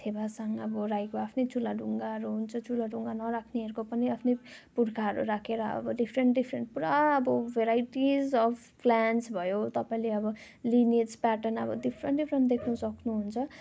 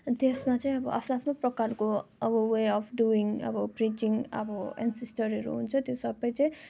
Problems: constant background noise